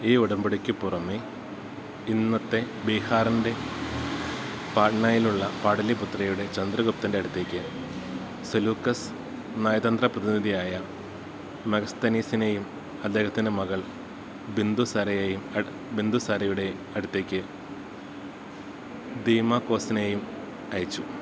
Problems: background sounds at intervals